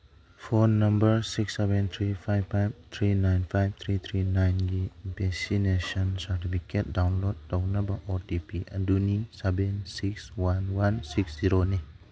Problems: background sounds at intervals